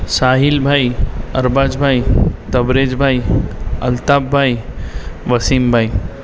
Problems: constant background noise